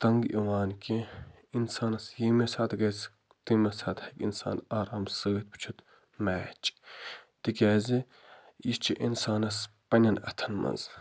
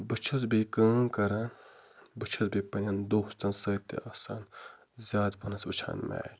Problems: background sounds at intervals